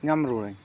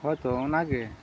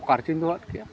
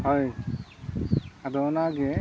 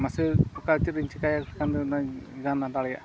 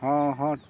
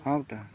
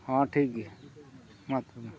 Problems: constant background noise, low volume